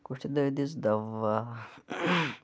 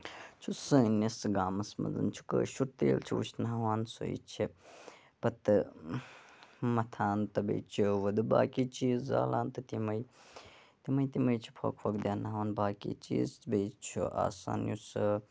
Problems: low volume